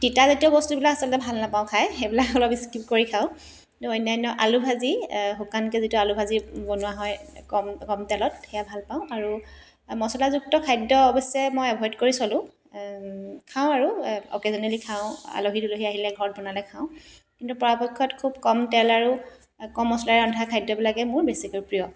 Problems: constant background noise